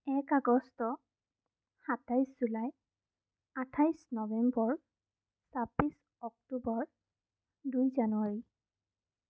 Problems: none marked